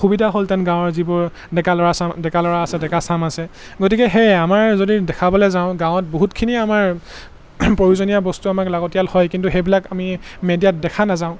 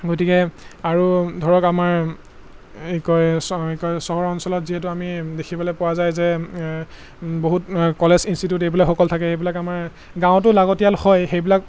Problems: constant background noise